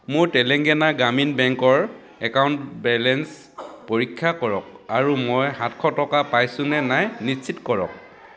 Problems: background sounds at intervals, background conversations at intervals